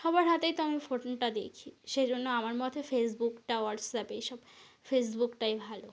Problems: constant background noise